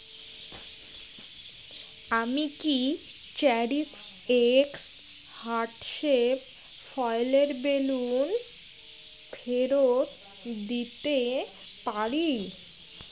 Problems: constant background noise, background conversations at intervals